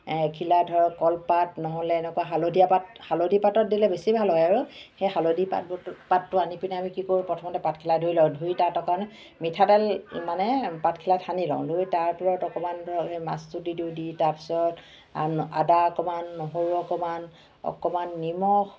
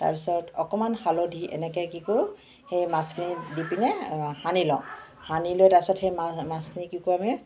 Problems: constant background noise, background conversations at intervals